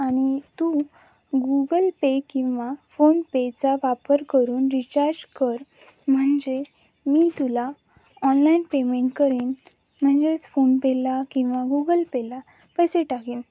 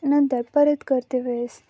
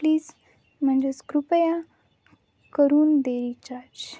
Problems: none marked